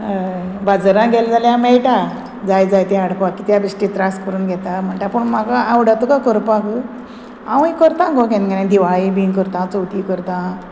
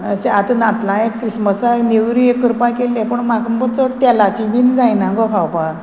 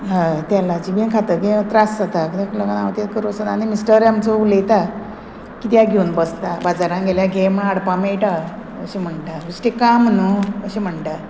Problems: none marked